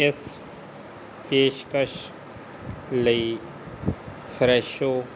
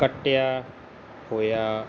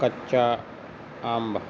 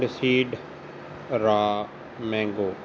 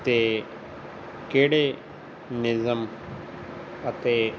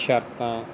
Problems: constant background noise